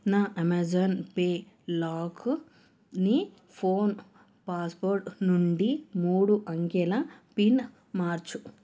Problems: none marked